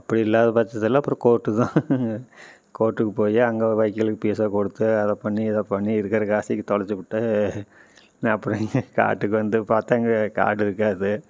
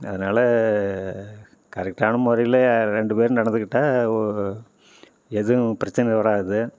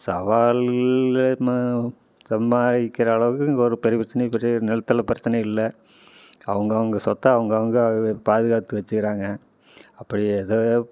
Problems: none marked